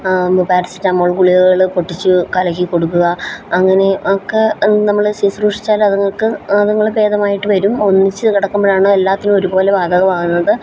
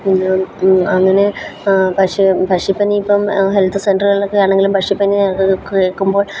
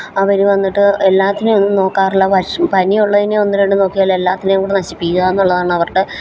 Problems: background sounds at intervals